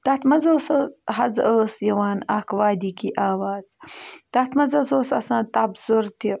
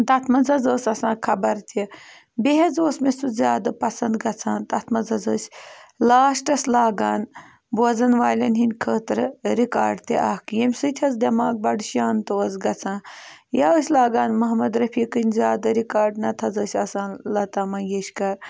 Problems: background sounds at intervals